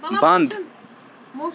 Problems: constant background noise, continuous background conversations